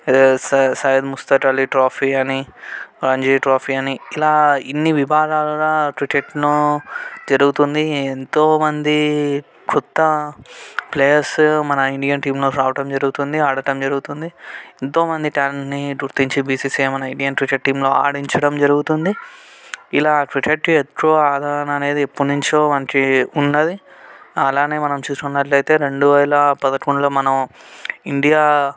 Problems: background sounds at intervals